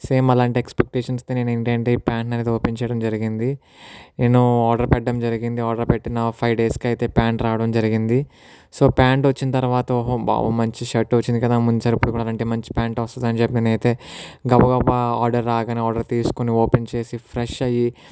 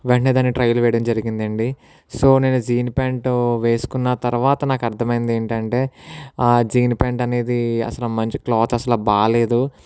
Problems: none marked